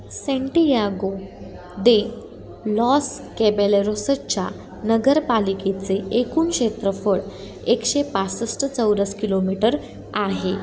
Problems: continuous background conversations